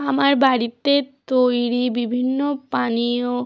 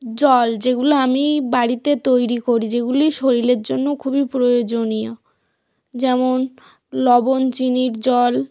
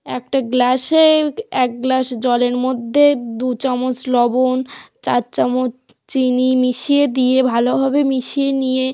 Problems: background sounds at intervals